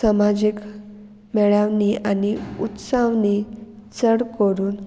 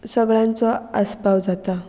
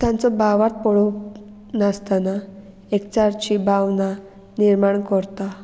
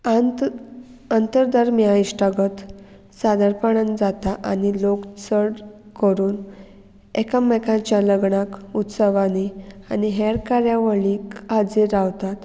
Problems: none marked